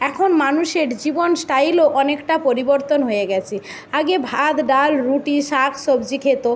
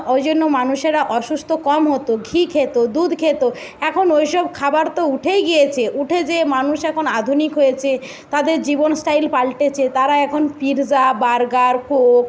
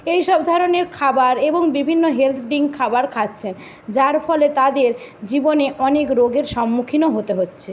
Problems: none marked